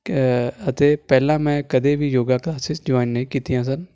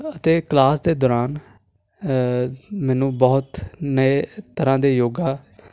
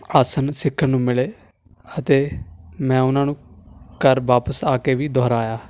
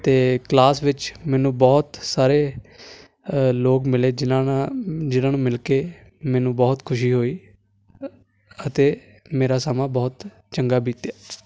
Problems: constant background noise